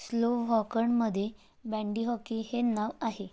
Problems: none marked